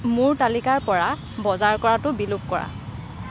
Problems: constant background noise